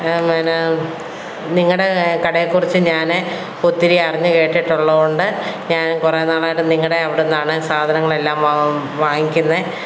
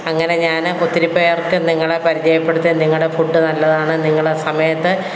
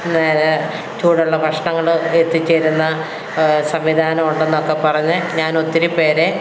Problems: none marked